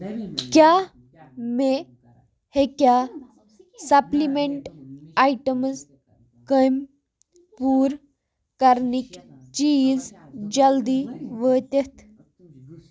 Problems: background sounds at intervals, background conversations at intervals